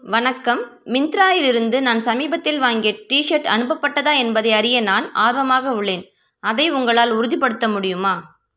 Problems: background conversations at intervals